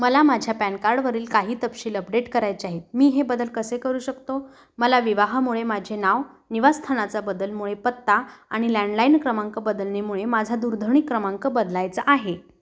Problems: none marked